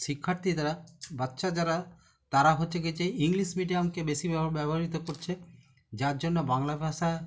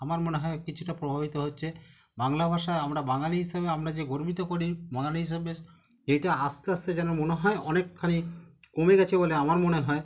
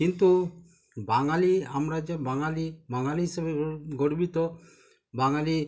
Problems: continuous background conversations